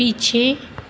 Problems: none marked